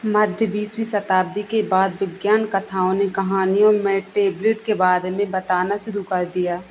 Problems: background sounds at intervals